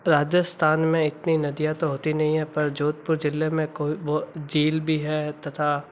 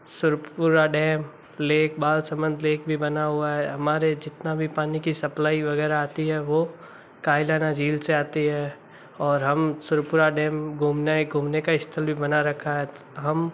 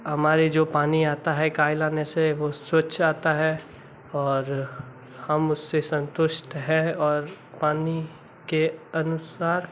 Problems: background sounds at intervals